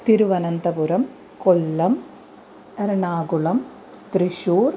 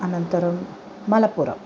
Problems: constant background noise